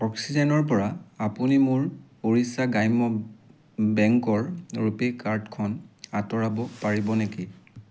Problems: constant background noise